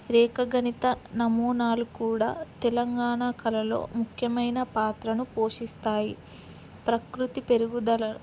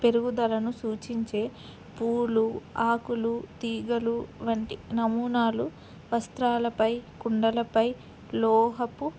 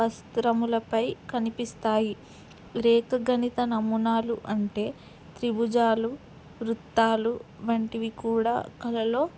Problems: constant background noise